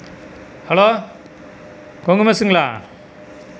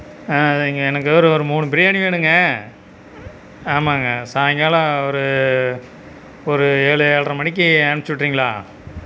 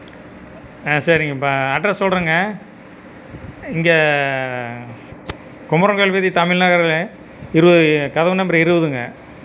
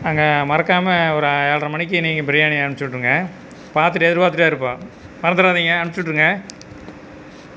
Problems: constant background noise